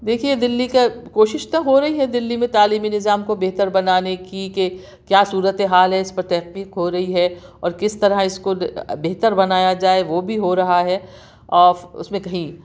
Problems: none marked